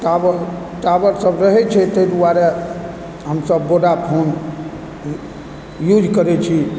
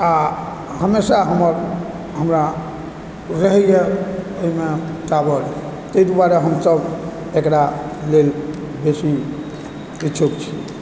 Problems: constant background noise